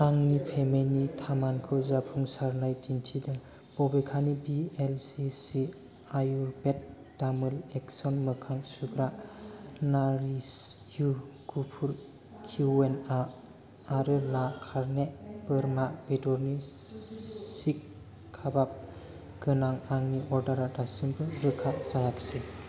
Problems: constant background noise